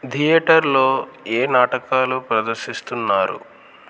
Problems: constant background noise